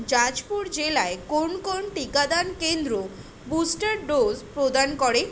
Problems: constant background noise